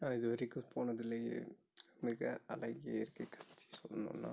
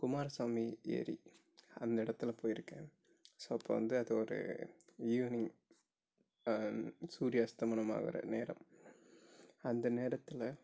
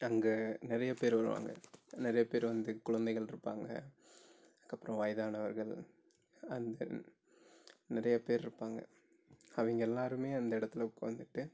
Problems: low volume